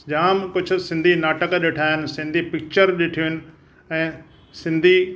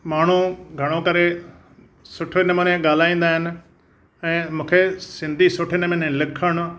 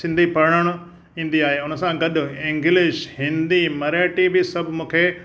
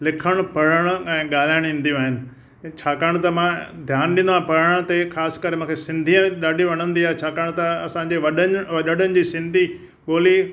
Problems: none marked